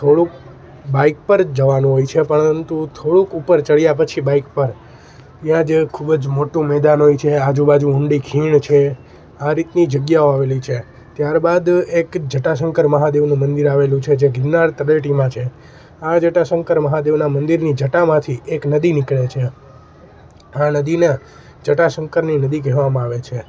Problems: constant background noise